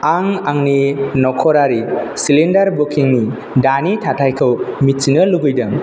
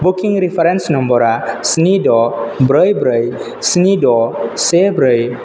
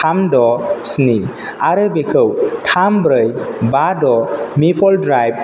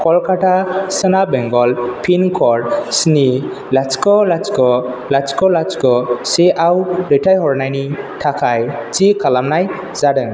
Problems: none marked